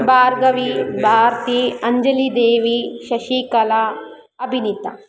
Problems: continuous background conversations